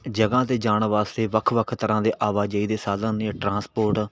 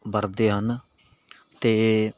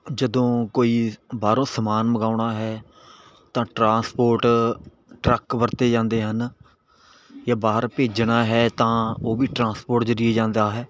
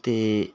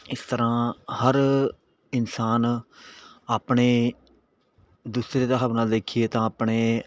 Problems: none marked